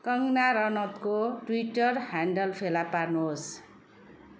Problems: continuous background conversations